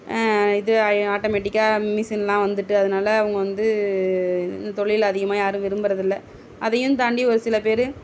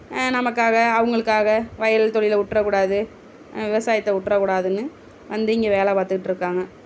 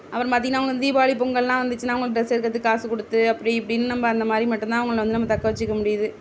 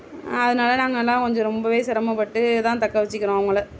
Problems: background sounds at intervals